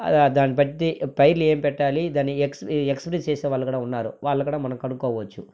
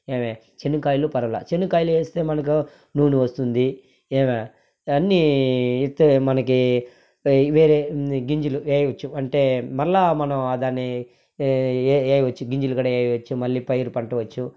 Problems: none marked